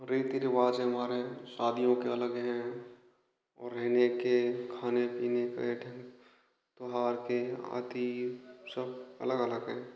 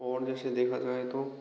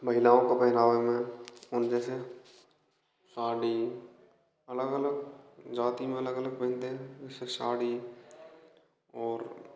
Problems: constant background noise, echo